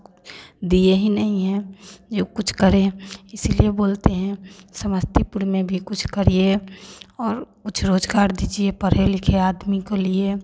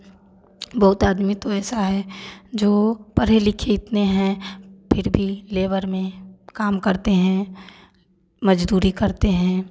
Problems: none marked